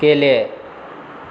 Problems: constant background noise